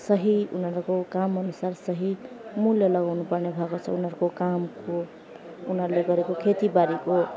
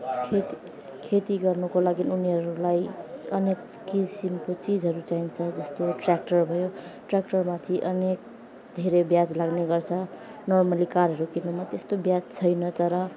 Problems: constant background noise, background conversations at intervals